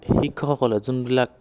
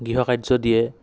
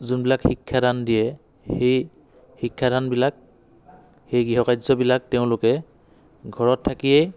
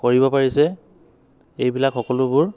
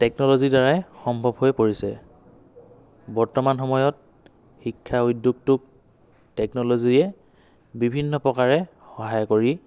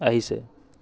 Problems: background conversations at intervals